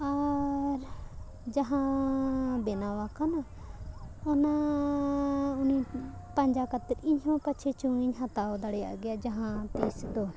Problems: background sounds at intervals